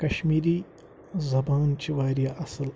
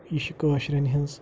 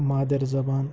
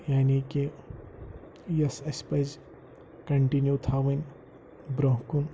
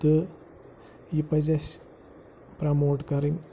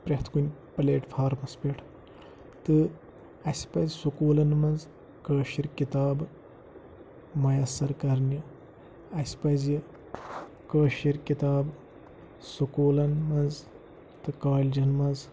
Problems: low volume